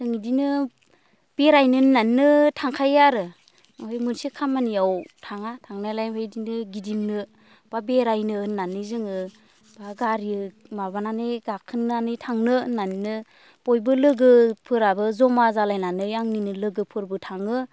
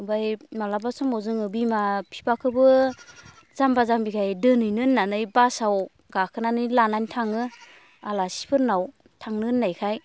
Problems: none marked